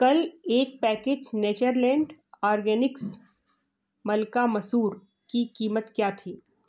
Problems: background sounds at intervals